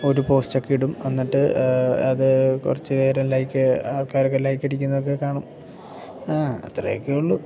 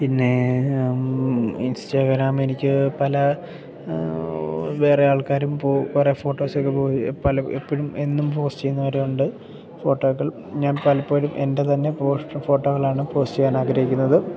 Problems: none marked